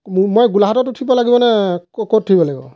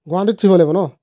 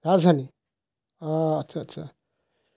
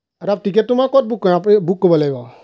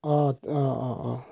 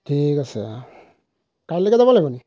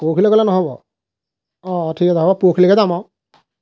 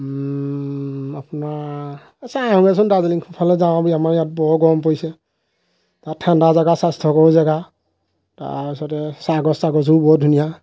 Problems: constant background noise